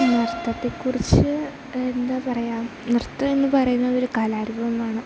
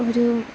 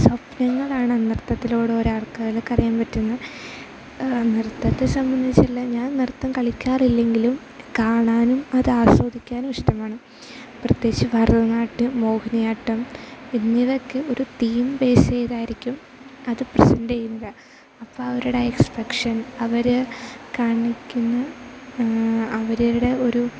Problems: low volume